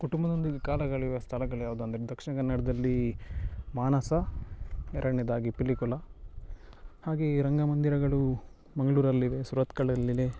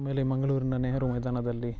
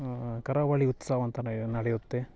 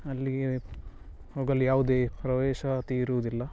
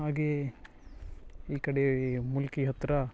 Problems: none marked